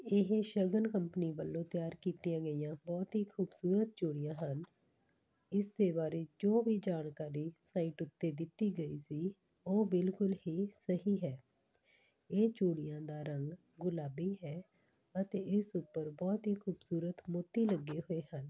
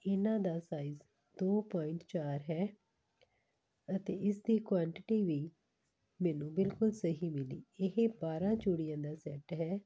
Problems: none marked